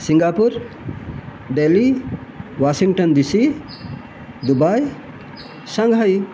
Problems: constant background noise